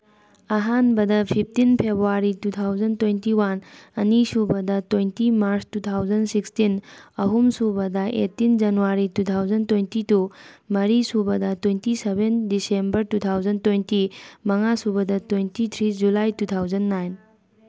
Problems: background conversations at intervals